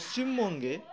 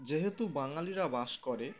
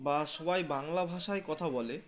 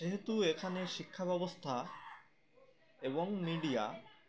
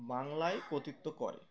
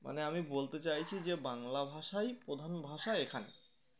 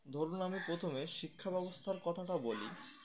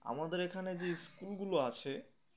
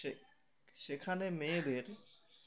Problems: constant background noise, continuous background conversations